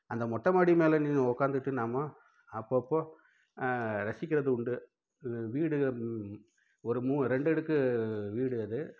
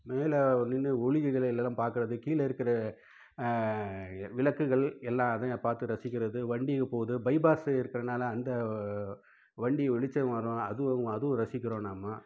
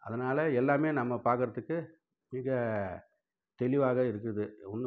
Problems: low volume